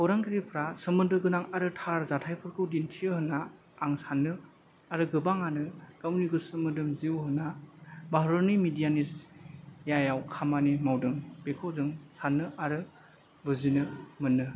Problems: low volume